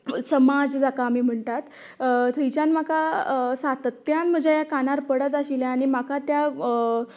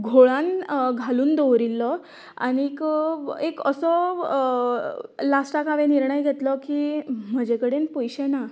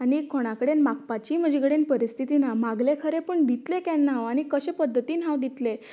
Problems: continuous background conversations